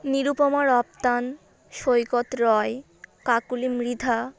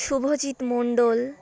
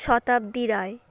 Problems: constant background noise, background conversations at intervals